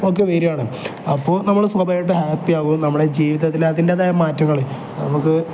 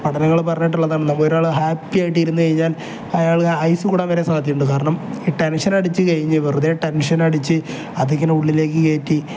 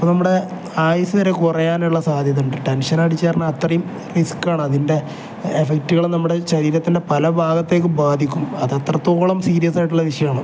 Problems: none marked